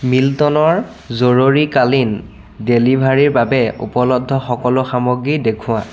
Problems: constant background noise, continuous background conversations